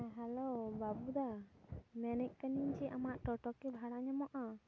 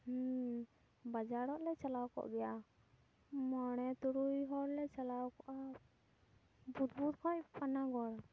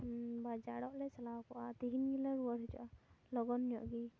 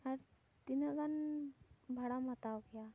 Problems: background sounds at intervals, low volume